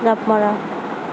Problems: constant background noise